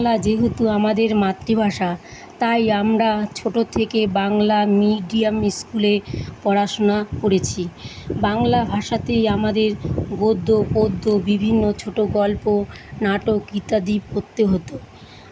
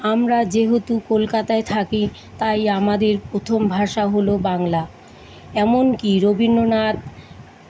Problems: constant background noise